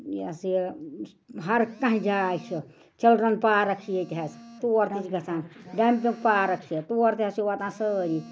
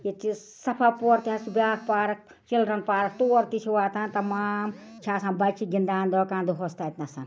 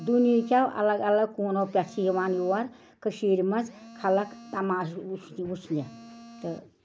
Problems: background sounds at intervals, background conversations at intervals